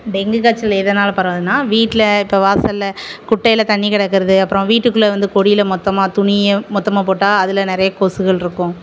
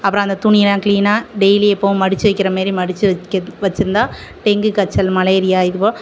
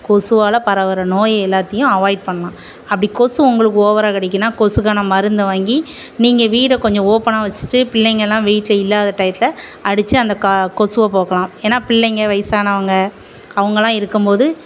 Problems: none marked